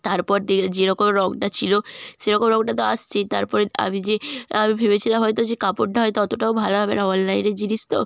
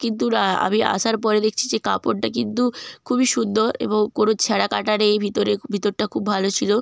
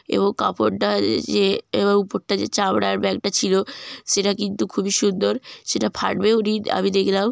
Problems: none marked